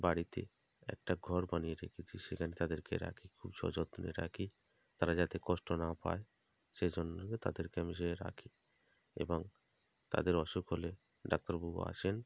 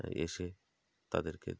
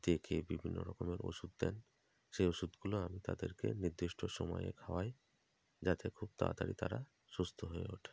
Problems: constant background noise